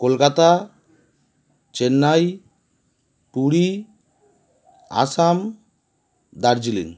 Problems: none marked